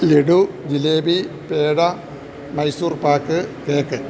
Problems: constant background noise